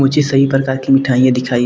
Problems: none marked